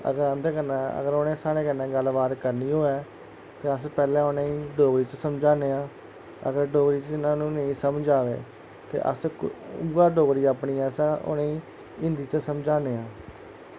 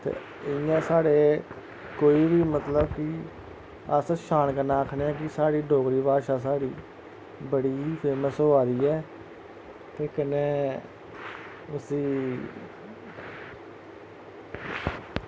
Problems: constant background noise